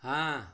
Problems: constant background noise